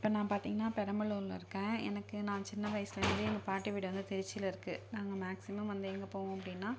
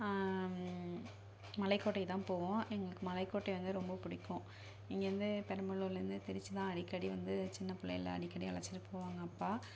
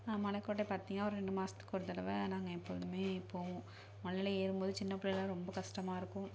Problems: low volume